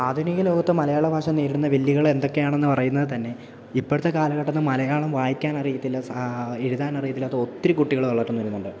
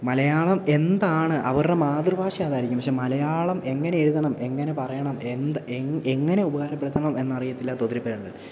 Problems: none marked